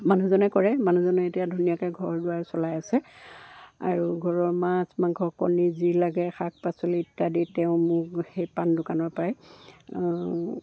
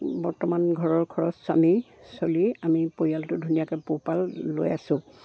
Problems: none marked